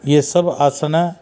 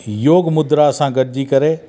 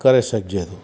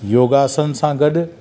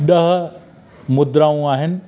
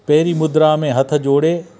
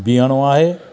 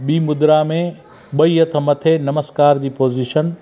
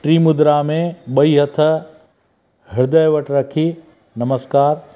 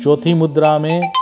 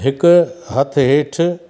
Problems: constant background noise, echo